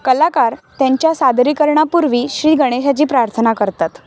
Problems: none marked